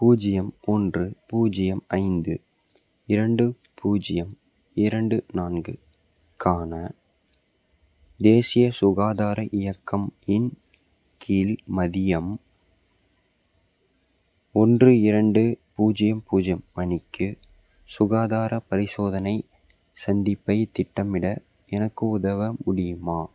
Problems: background sounds at intervals